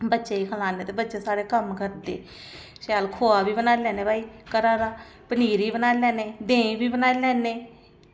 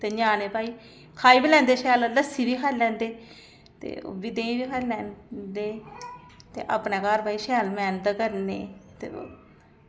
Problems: none marked